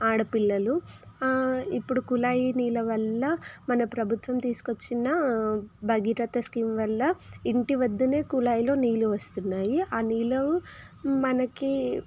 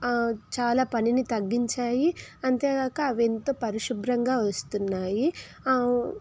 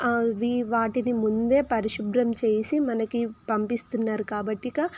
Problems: constant background noise